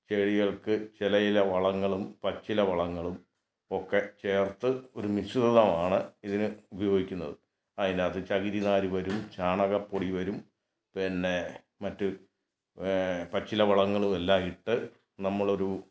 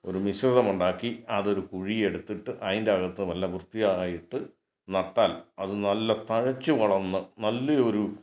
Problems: none marked